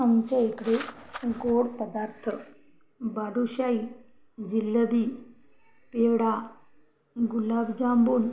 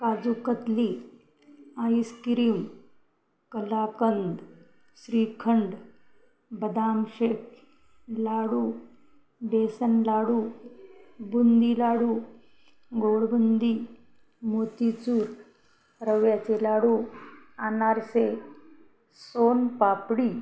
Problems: background sounds at intervals, background conversations at intervals